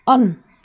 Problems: background sounds at intervals